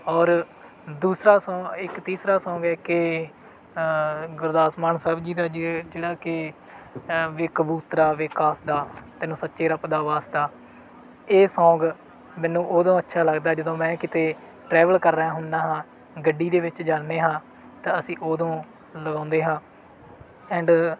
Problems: background sounds at intervals